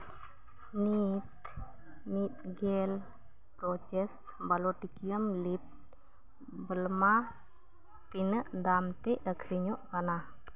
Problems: background sounds at intervals